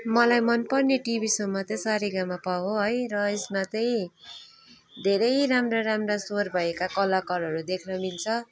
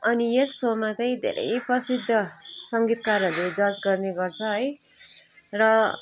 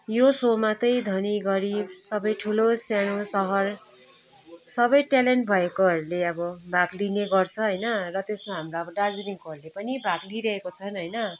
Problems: background conversations at intervals